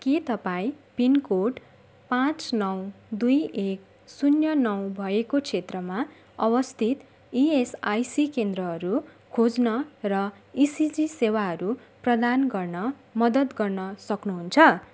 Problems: background sounds at intervals